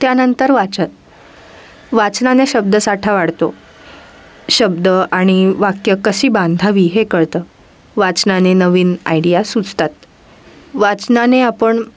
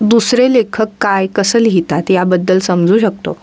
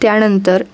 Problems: constant background noise